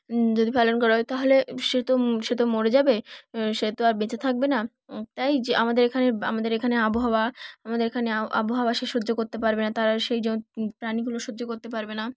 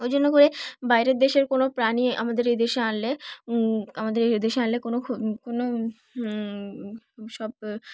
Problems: background sounds at intervals